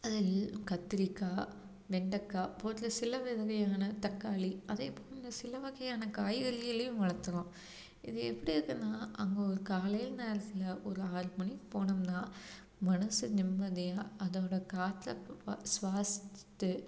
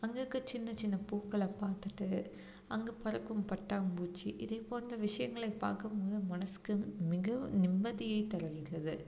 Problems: low volume